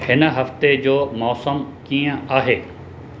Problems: constant background noise